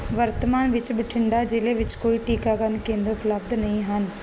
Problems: constant background noise